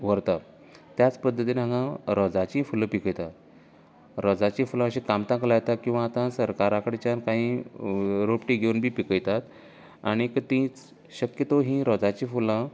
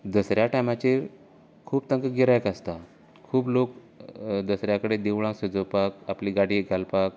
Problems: constant background noise